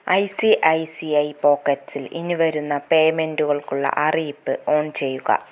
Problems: none marked